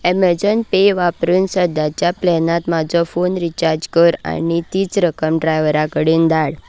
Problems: background sounds at intervals